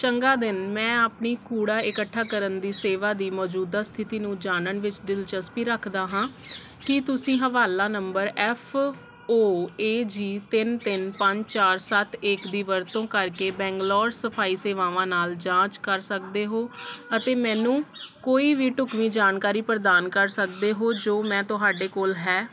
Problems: constant background noise